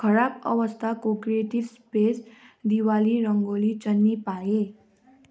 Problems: none marked